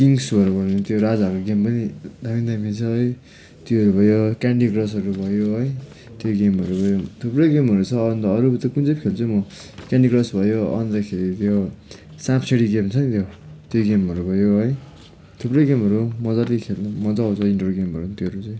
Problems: constant background noise